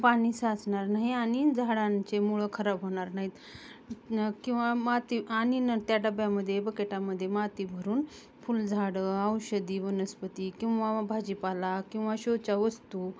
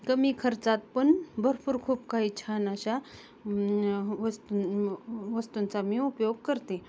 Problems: none marked